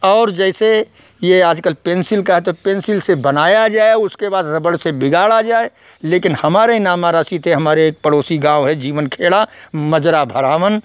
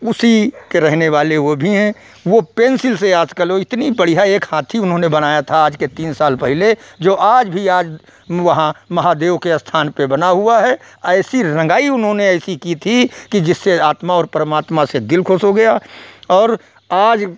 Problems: background sounds at intervals